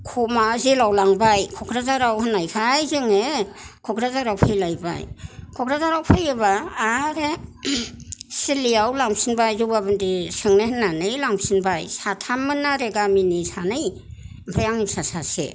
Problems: none marked